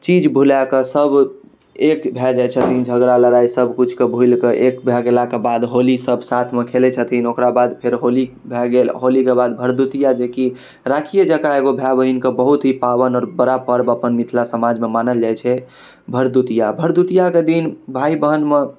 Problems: none marked